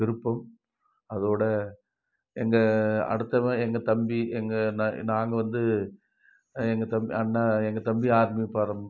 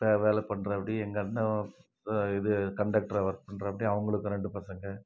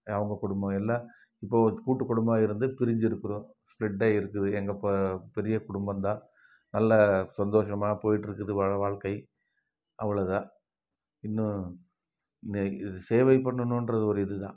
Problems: none marked